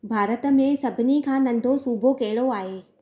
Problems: constant background noise